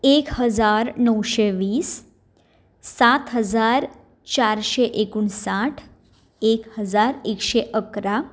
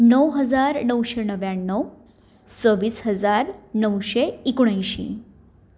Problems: constant background noise